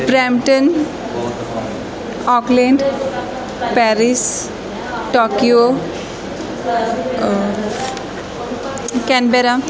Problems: continuous background conversations